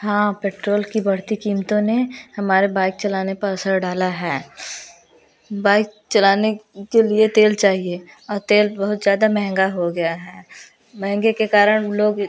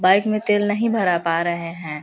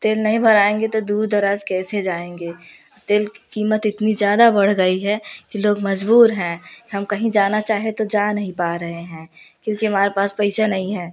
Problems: background sounds at intervals, background conversations at intervals